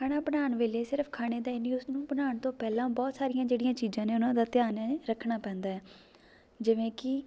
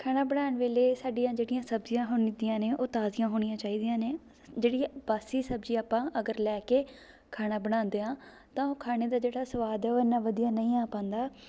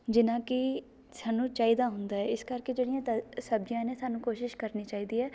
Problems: background conversations at intervals